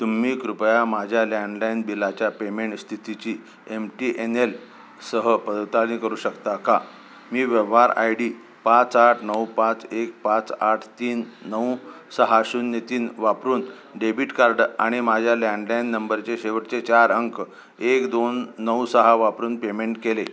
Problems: constant background noise, continuous background conversations